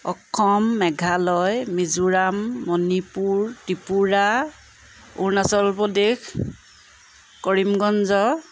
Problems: constant background noise